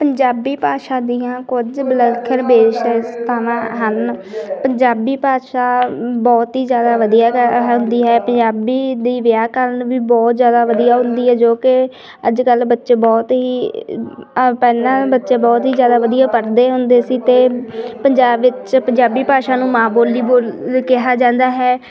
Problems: continuous background conversations